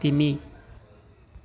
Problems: none marked